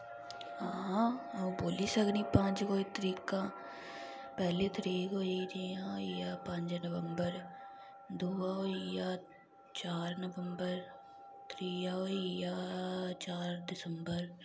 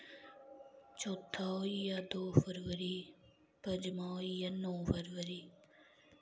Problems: none marked